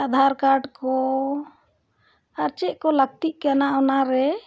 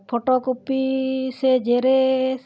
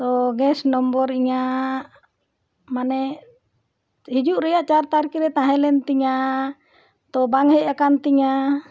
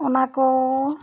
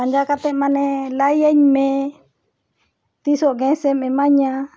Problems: background conversations at intervals